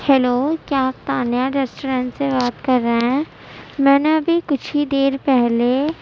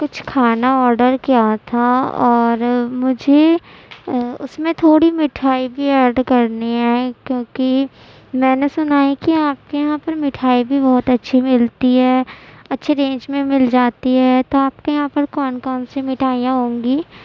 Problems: constant background noise, low volume